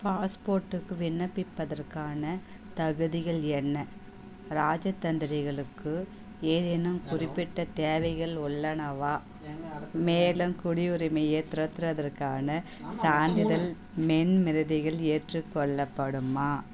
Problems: continuous background conversations